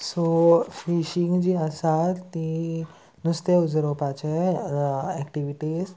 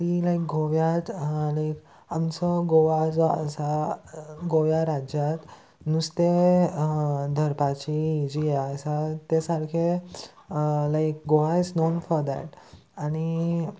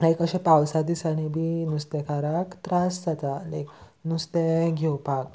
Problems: constant background noise